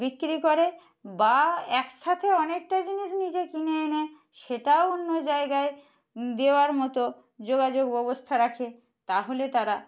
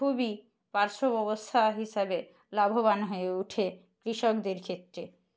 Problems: none marked